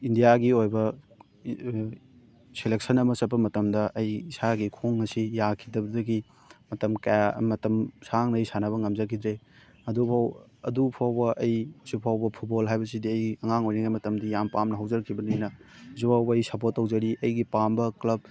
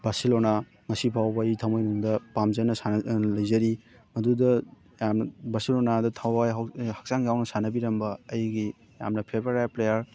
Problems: background sounds at intervals, background conversations at intervals